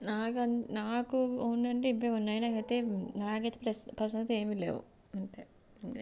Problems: low volume